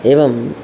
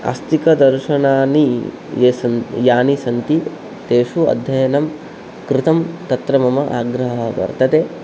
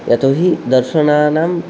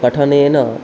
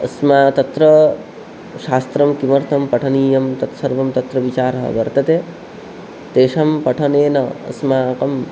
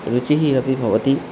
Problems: constant background noise